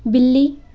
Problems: none marked